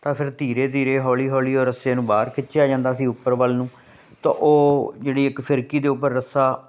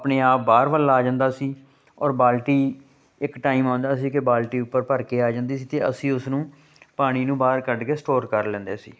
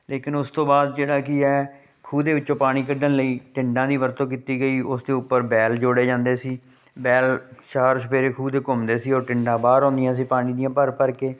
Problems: constant background noise